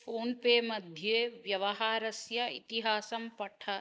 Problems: none marked